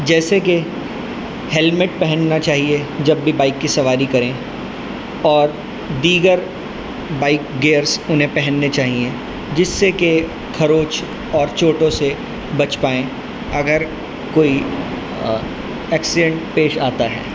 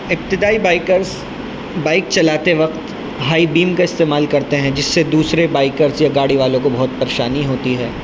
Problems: constant background noise